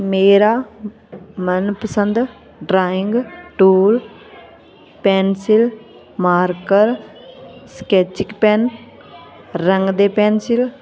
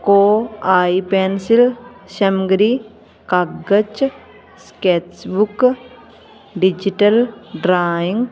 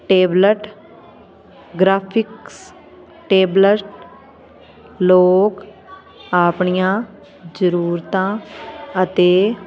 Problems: constant background noise